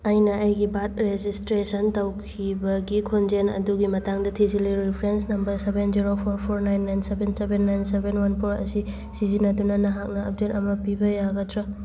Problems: none marked